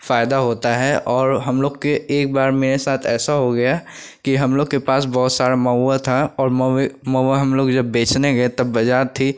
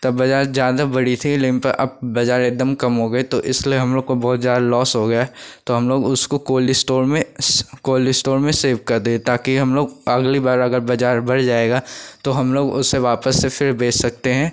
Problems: constant background noise